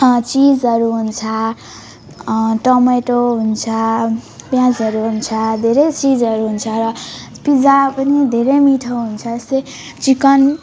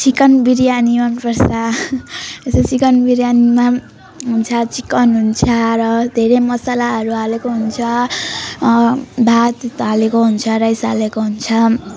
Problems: continuous background conversations